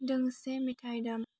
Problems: constant background noise